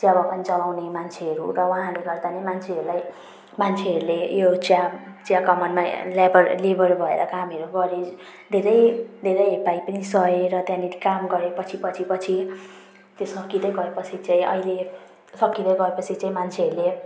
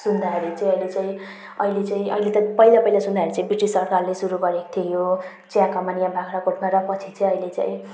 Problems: background sounds at intervals